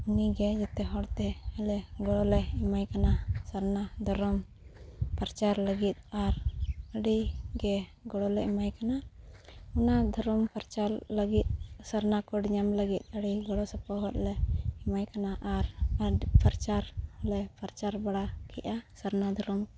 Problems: none marked